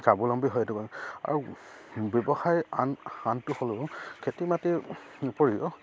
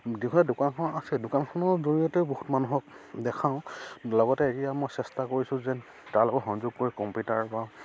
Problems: constant background noise, background conversations at intervals